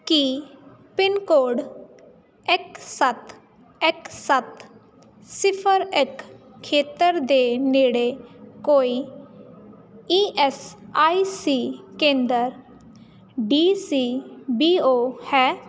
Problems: constant background noise